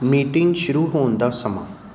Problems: background sounds at intervals